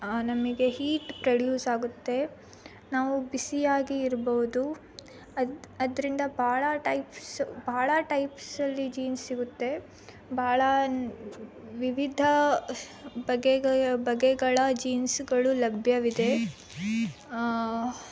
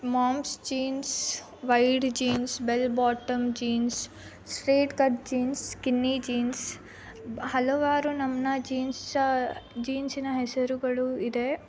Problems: constant background noise